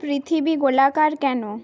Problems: background sounds at intervals